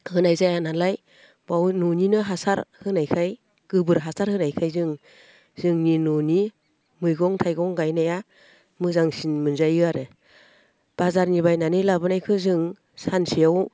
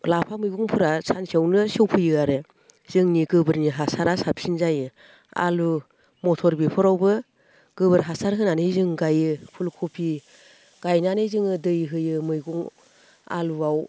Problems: none marked